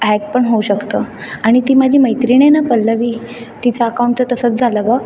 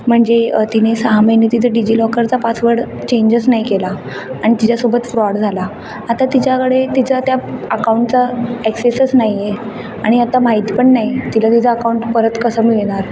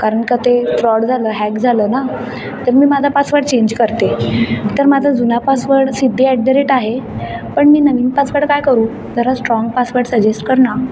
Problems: constant background noise, background conversations at intervals